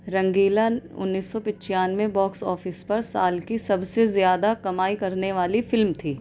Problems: none marked